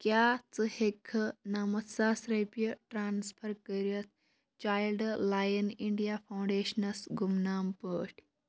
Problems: background sounds at intervals